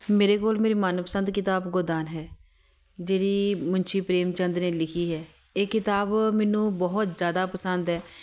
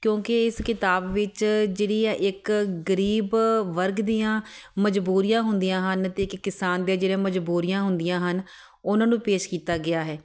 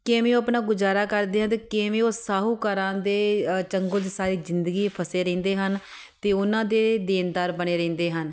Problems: none marked